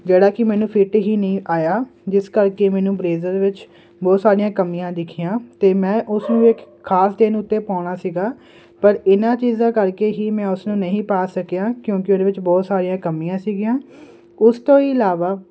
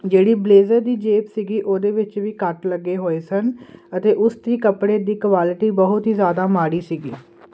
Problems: constant background noise